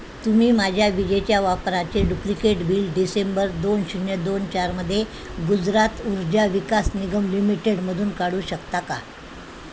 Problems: constant background noise